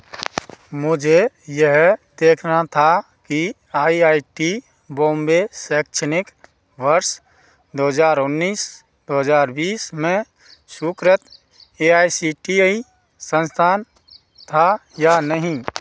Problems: background sounds at intervals